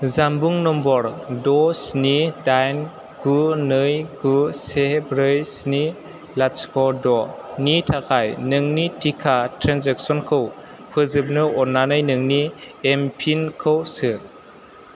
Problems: constant background noise